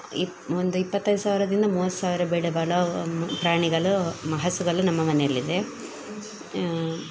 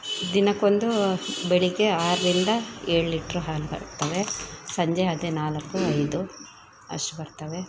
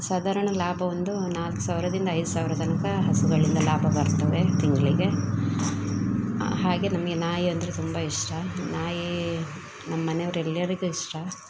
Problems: background sounds at intervals